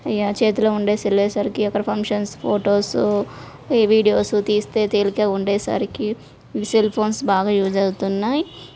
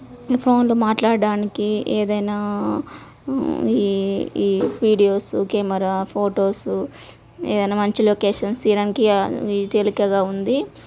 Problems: none marked